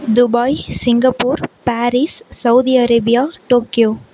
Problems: none marked